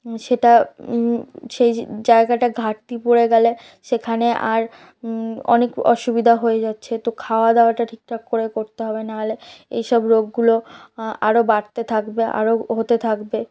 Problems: background sounds at intervals, background conversations at intervals